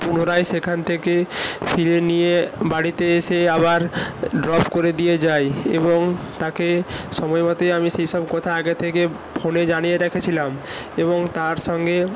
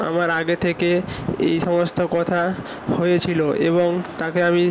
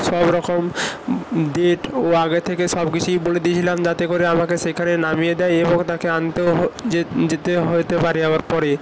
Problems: constant background noise